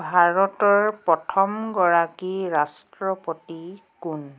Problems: none marked